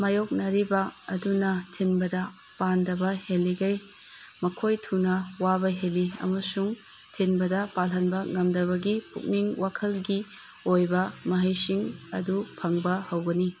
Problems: background sounds at intervals